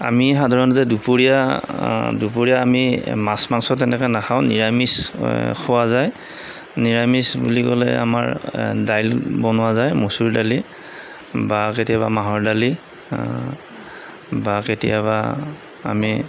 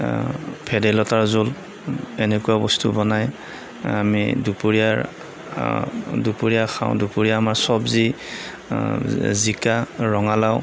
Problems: none marked